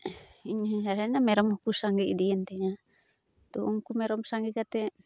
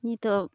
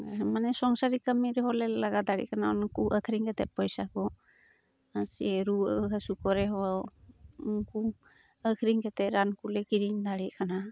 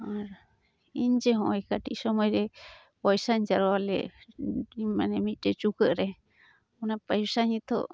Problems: background sounds at intervals